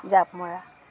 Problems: continuous background conversations